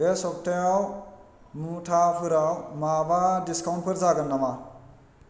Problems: constant background noise